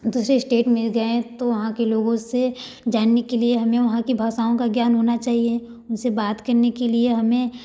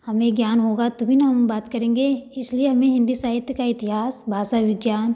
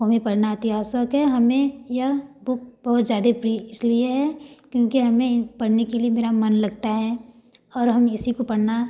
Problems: none marked